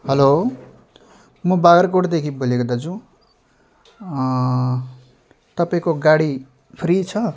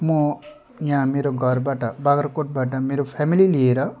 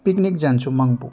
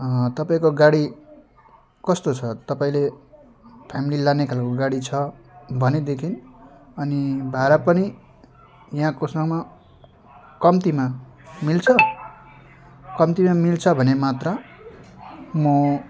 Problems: background sounds at intervals